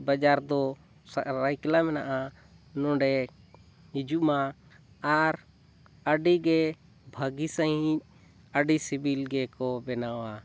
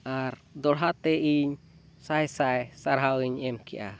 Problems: none marked